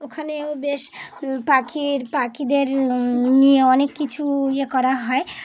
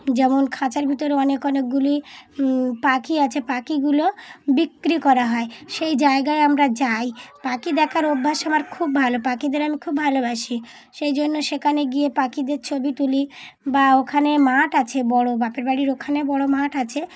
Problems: none marked